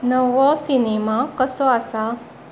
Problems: background sounds at intervals